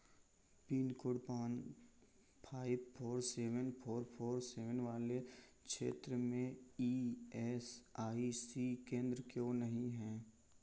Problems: constant background noise